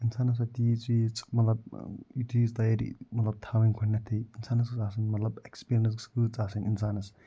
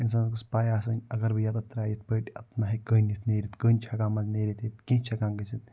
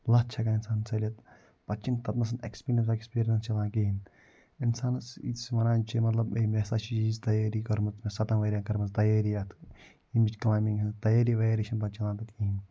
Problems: none marked